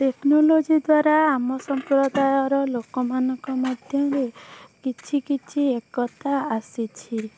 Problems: constant background noise